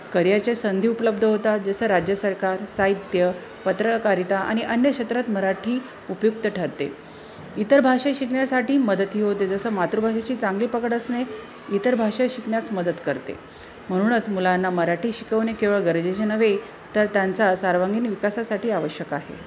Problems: constant background noise, continuous background conversations